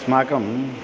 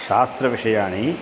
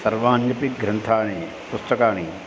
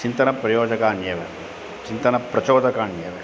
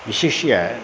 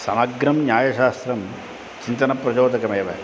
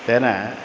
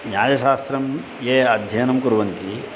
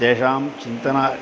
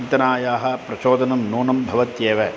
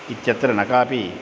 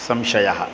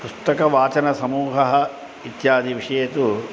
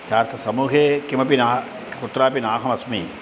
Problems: constant background noise